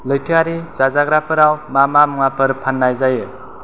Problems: constant background noise